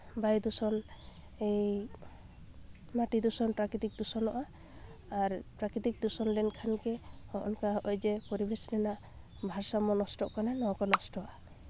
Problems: background sounds at intervals, low volume